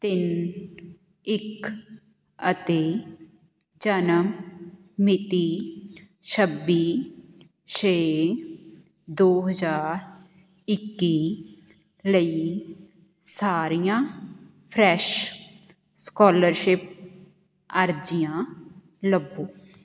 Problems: none marked